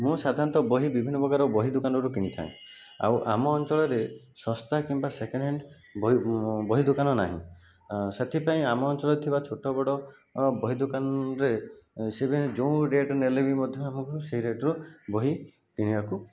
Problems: background sounds at intervals